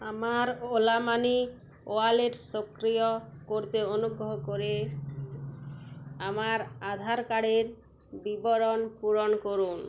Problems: none marked